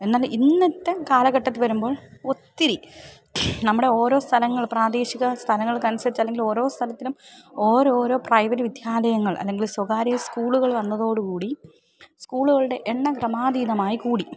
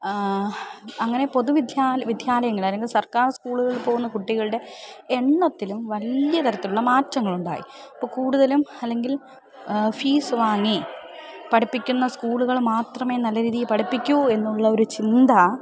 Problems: background sounds at intervals, background conversations at intervals